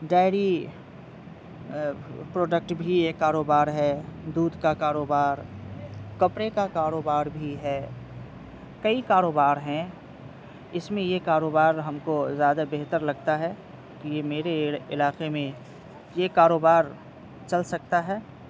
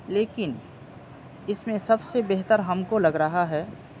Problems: constant background noise